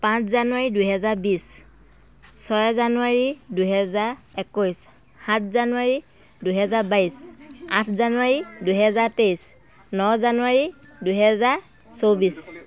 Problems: continuous background conversations